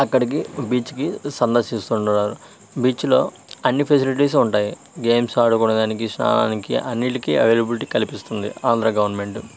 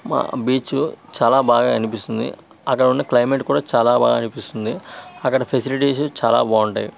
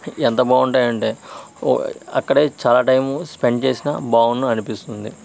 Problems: constant background noise